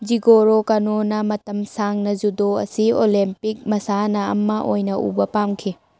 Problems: none marked